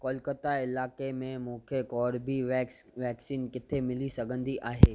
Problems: none marked